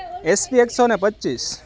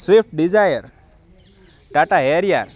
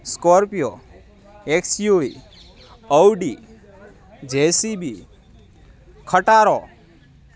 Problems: constant background noise